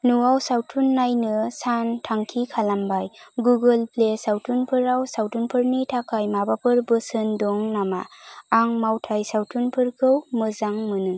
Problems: constant background noise